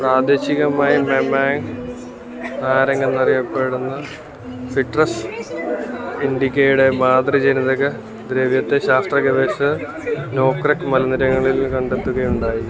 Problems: constant background noise